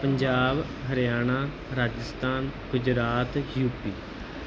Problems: none marked